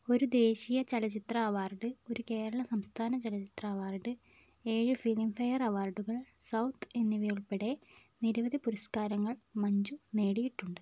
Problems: none marked